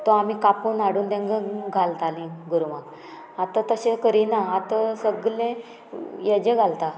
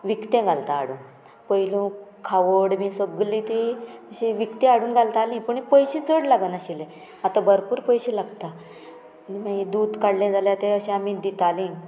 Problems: background sounds at intervals